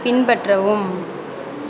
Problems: constant background noise